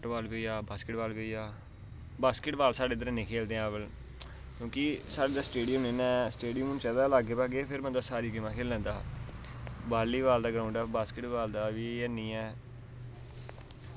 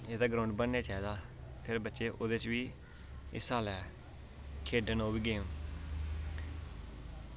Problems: none marked